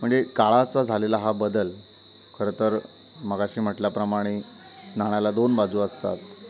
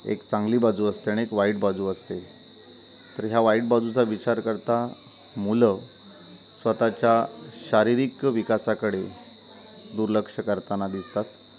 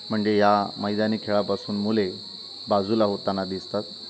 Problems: constant background noise, continuous background conversations